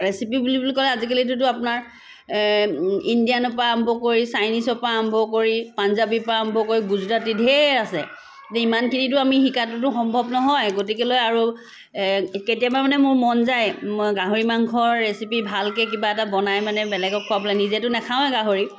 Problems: constant background noise